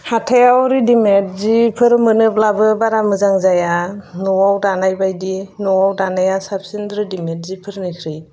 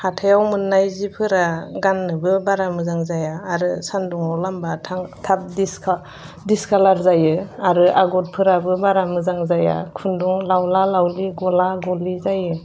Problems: none marked